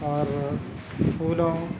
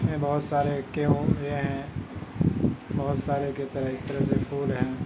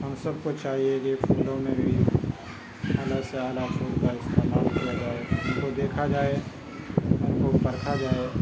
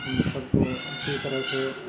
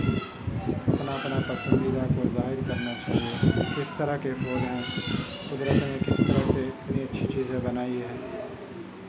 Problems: constant background noise, continuous background conversations, low volume